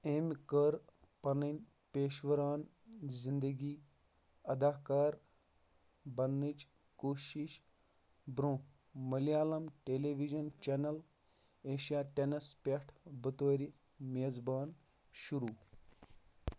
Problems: low volume